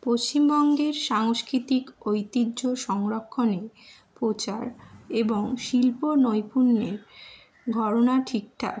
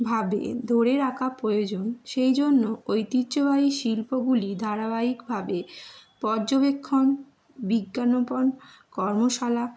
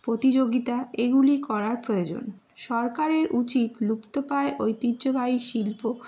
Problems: none marked